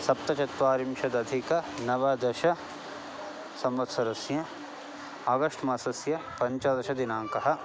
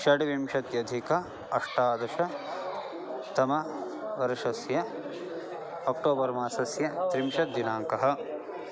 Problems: constant background noise